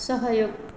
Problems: low volume